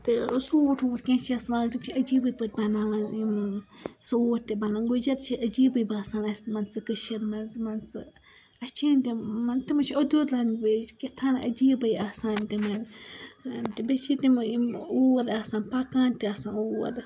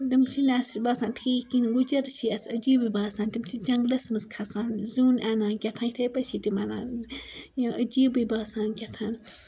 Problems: background sounds at intervals, background conversations at intervals